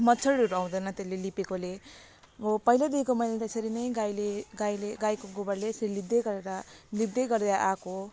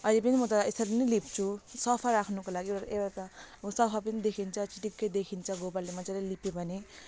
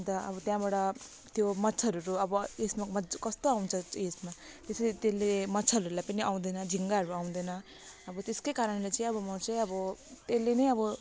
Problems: constant background noise